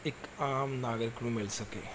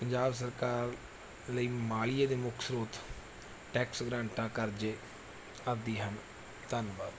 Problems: background sounds at intervals